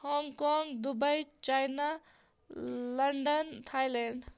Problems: none marked